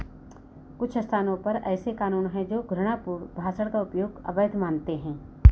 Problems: constant background noise